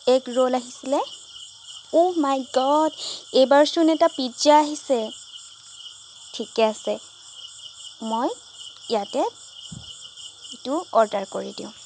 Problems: background sounds at intervals